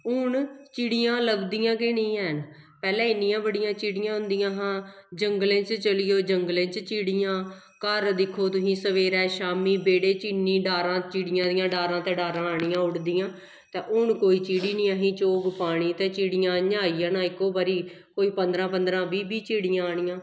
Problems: echo